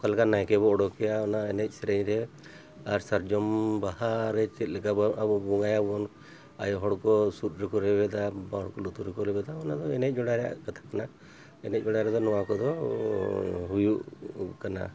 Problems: background sounds at intervals